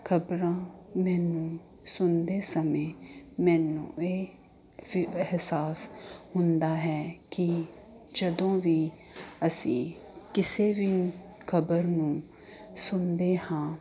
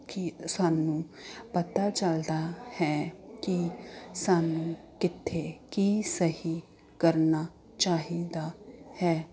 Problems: constant background noise